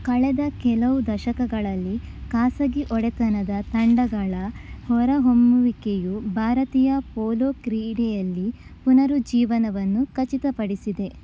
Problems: none marked